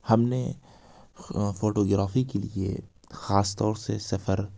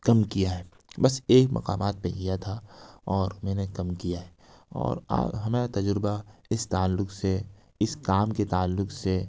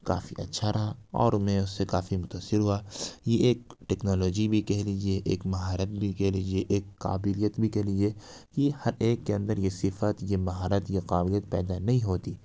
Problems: none marked